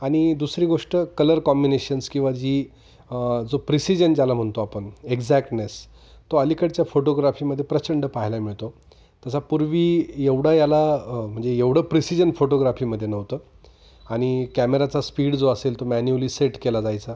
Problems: constant background noise, background conversations at intervals